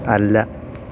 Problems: constant background noise